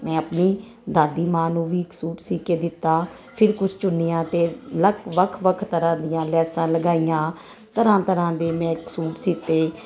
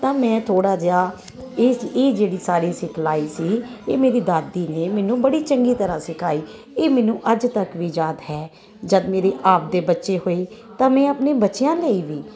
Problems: constant background noise